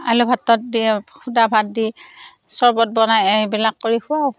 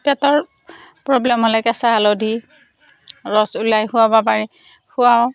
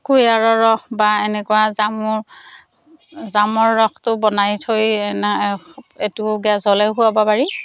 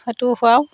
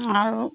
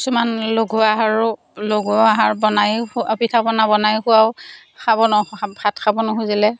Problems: none marked